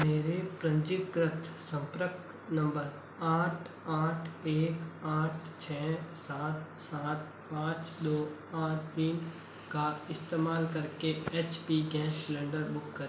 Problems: constant background noise, low volume